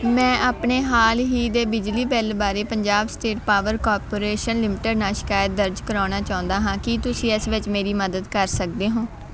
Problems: none marked